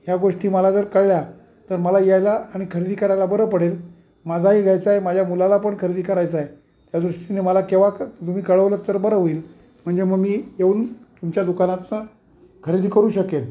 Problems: none marked